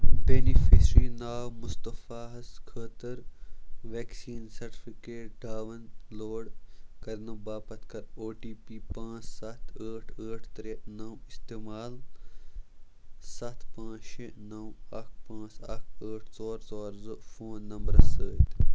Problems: background sounds at intervals, low volume